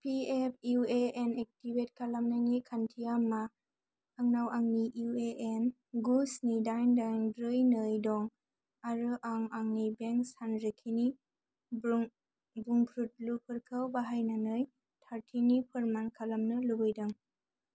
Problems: low volume